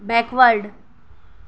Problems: none marked